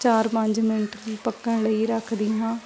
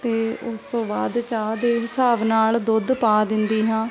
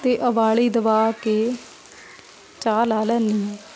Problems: constant background noise, continuous background conversations